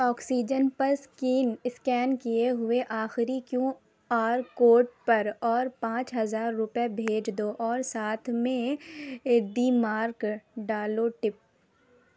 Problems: constant background noise